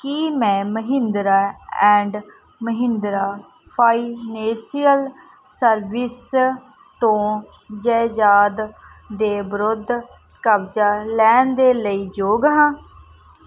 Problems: background sounds at intervals